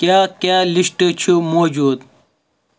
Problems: background sounds at intervals